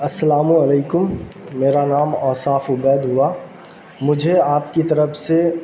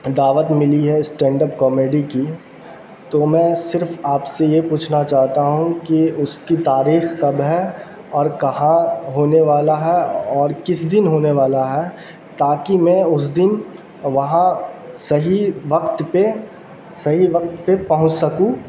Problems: constant background noise